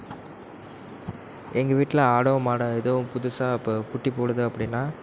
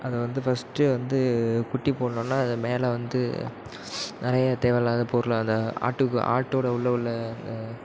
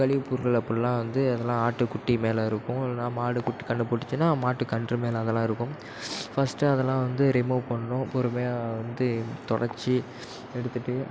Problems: background sounds at intervals